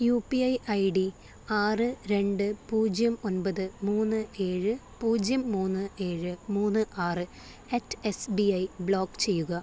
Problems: low volume